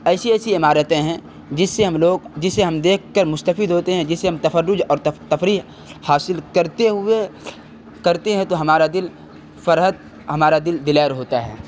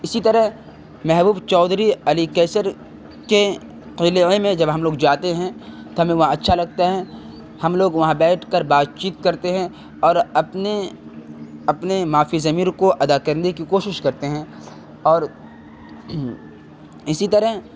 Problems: constant background noise